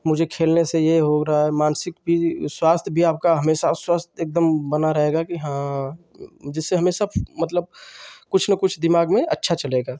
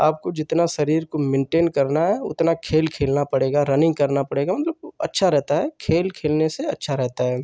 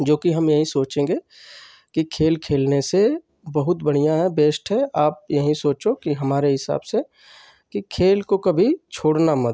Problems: constant background noise